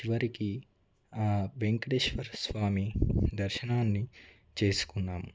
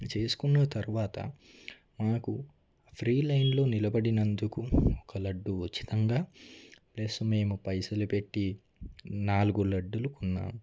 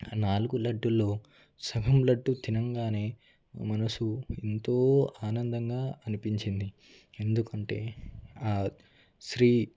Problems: low volume